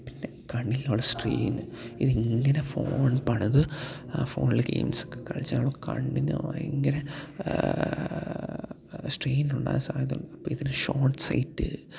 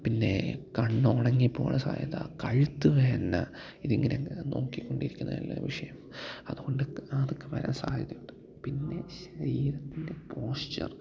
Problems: background sounds at intervals, low volume